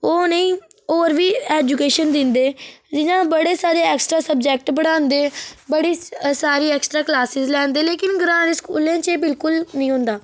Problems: none marked